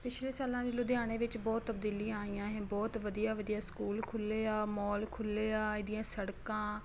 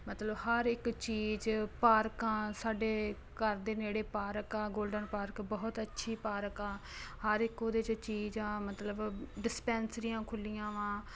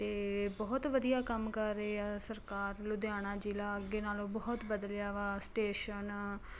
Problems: constant background noise